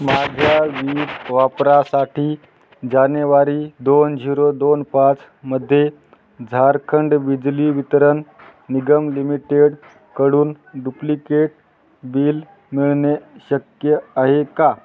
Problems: none marked